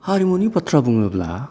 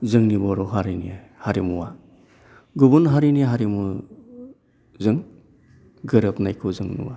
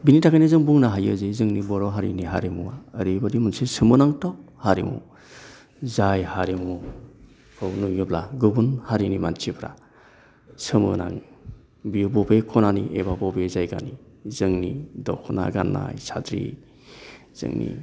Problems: low volume